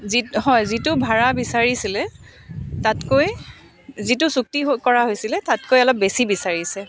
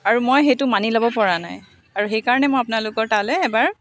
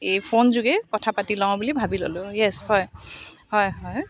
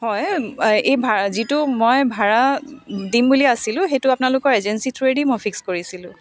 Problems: none marked